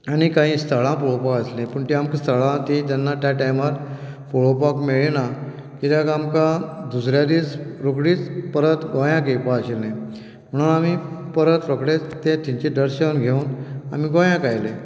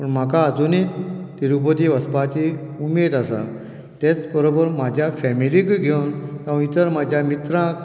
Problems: none marked